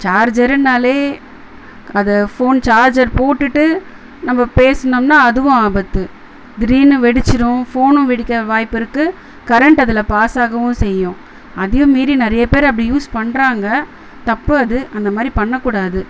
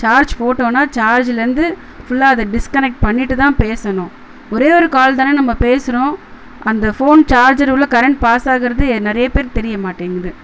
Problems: constant background noise